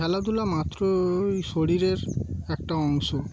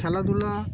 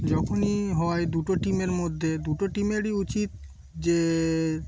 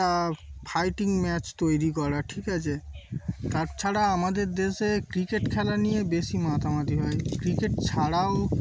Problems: constant background noise, background conversations at intervals